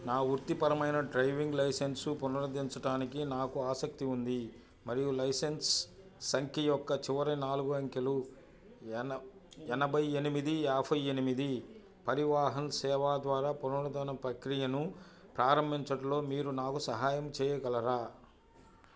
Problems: none marked